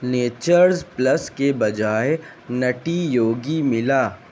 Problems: constant background noise